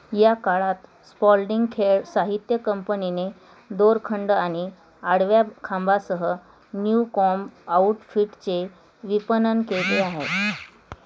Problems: constant background noise